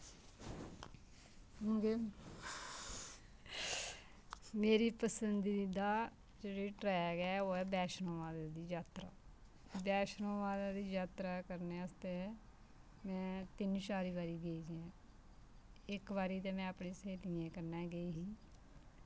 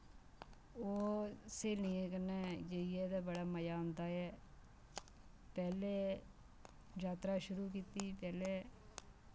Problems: none marked